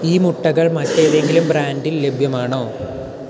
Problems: constant background noise